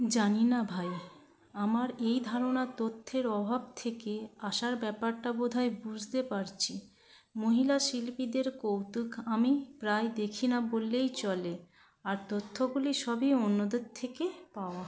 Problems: continuous background conversations